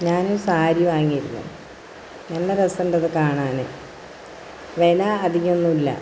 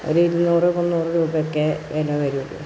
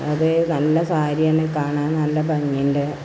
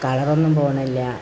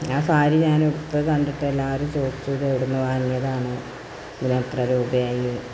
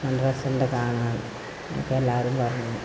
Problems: constant background noise